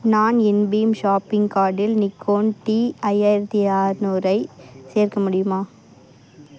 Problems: constant background noise, continuous background conversations